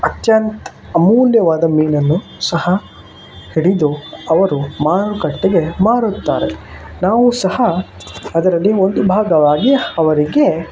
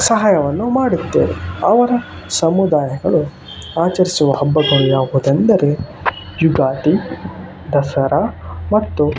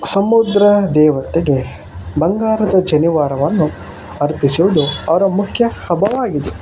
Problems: constant background noise